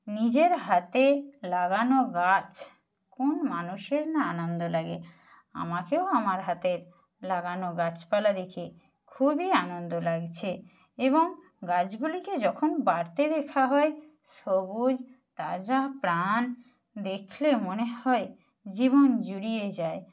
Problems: none marked